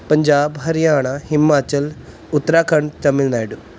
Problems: background sounds at intervals